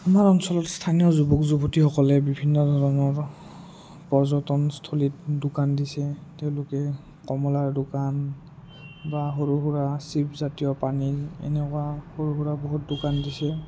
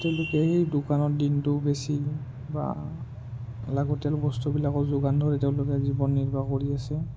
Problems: low volume